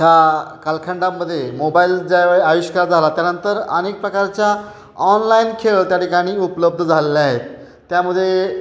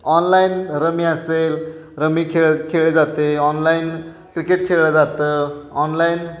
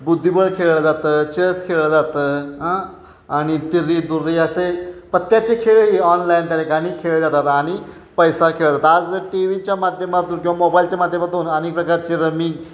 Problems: none marked